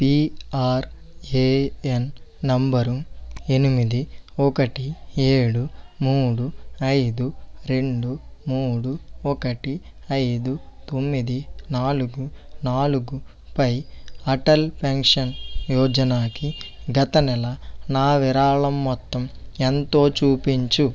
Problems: background sounds at intervals